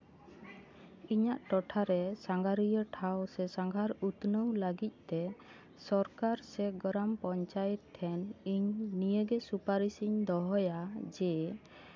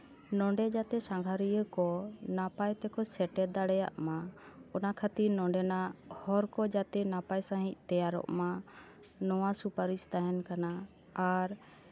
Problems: none marked